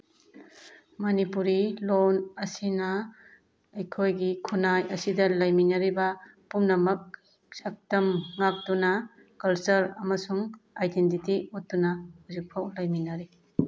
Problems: none marked